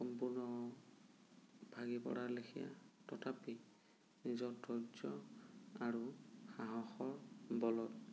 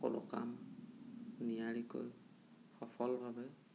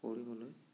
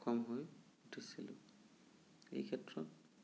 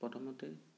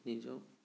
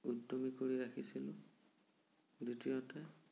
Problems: low volume